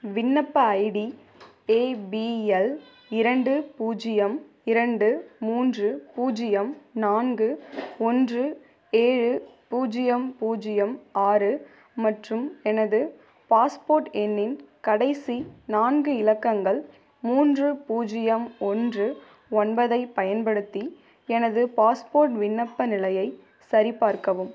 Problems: background sounds at intervals